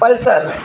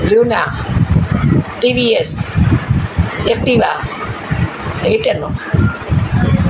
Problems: none marked